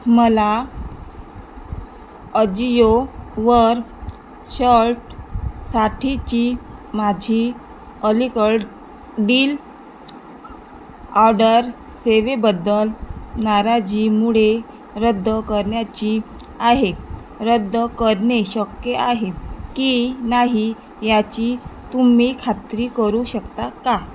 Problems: constant background noise